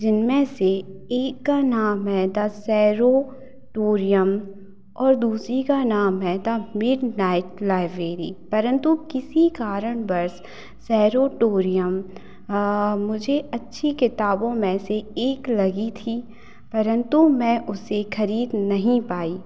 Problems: constant background noise